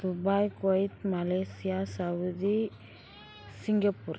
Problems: background sounds at intervals